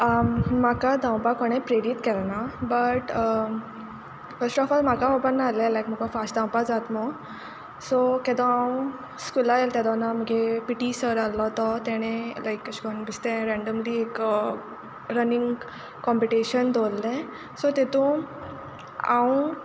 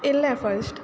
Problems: background sounds at intervals